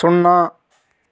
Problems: background sounds at intervals